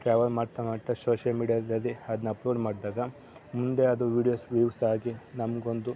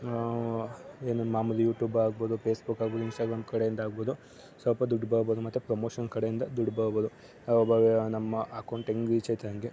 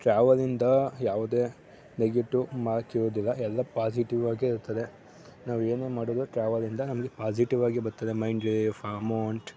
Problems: background sounds at intervals